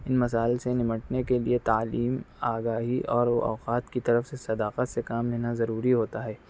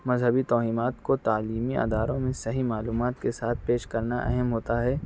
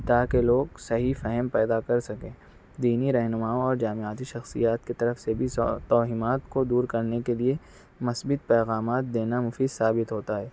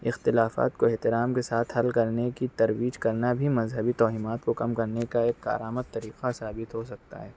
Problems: none marked